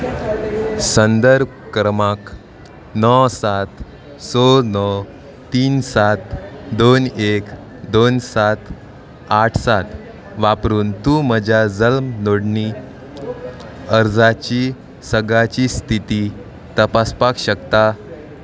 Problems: constant background noise